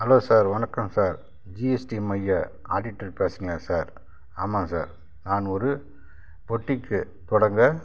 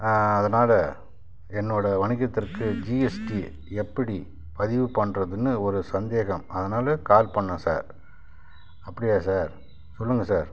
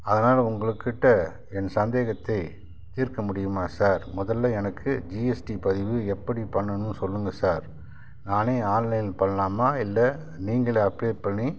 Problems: background sounds at intervals